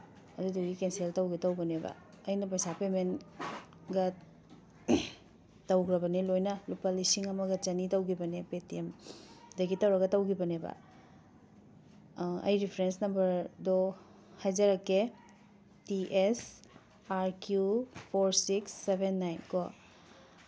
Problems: background sounds at intervals